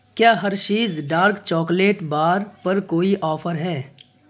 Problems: constant background noise